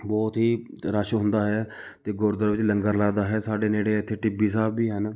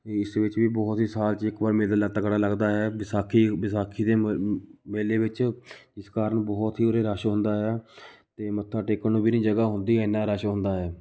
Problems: background sounds at intervals